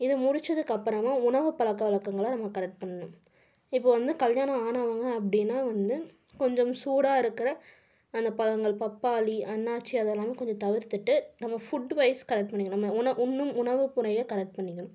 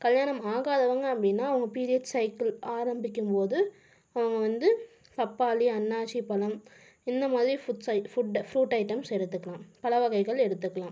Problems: none marked